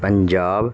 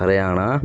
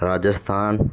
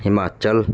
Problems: constant background noise